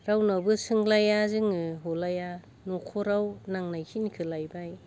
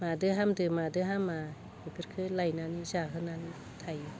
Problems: none marked